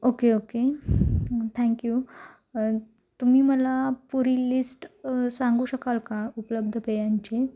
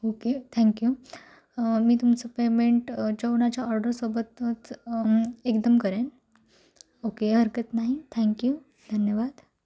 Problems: constant background noise